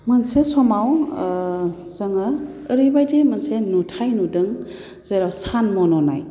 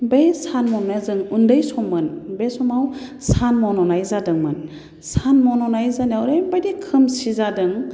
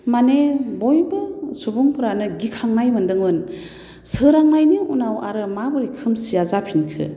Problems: constant background noise